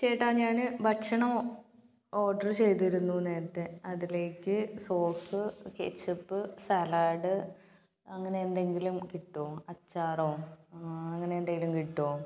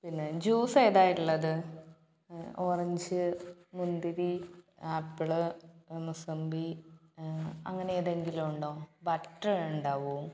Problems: background sounds at intervals